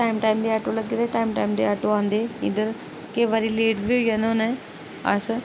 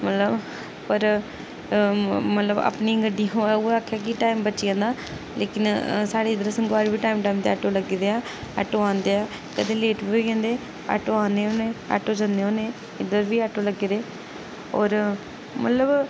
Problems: none marked